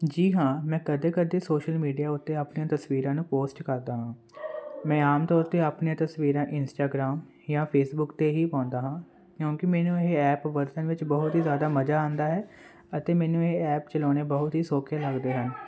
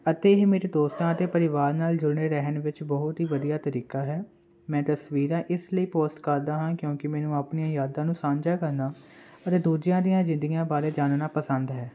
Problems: none marked